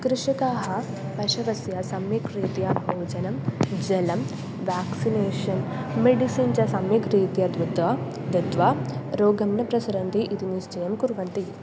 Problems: none marked